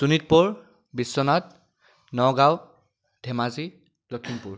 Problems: background sounds at intervals